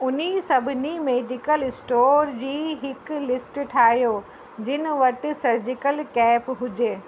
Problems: constant background noise, echo